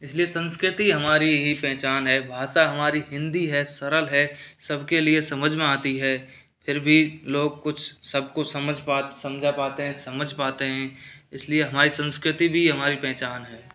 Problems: none marked